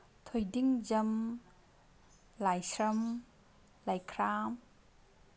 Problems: none marked